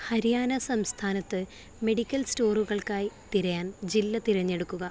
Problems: constant background noise